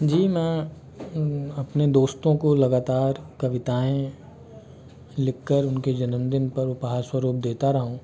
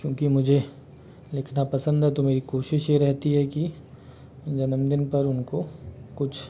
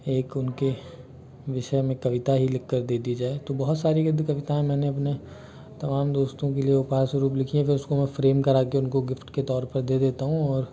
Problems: constant background noise